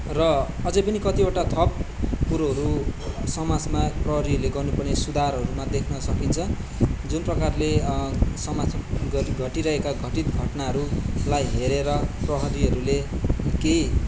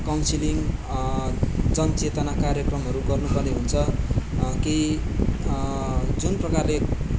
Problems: background sounds at intervals, background conversations at intervals